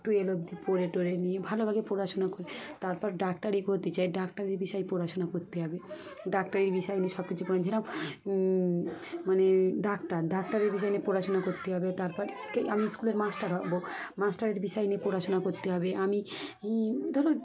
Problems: constant background noise, continuous background conversations